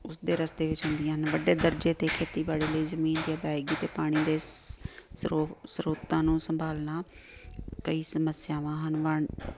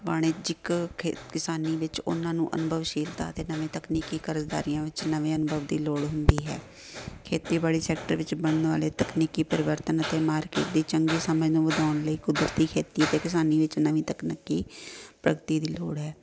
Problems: none marked